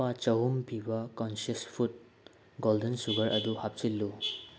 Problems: background sounds at intervals